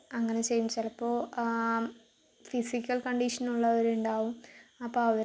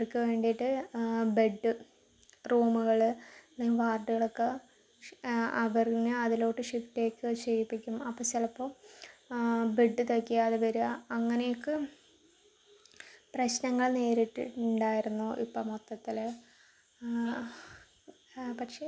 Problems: low volume